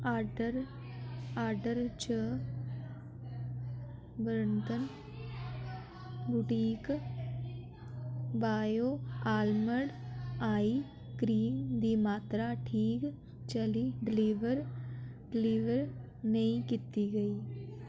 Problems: background sounds at intervals, echo